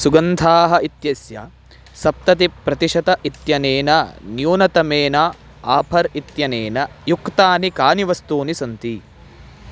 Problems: background sounds at intervals